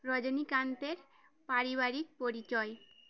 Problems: background sounds at intervals